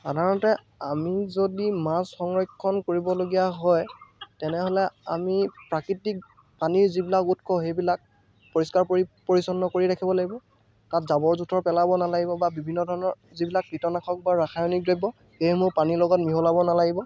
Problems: none marked